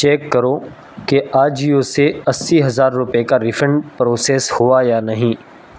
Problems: constant background noise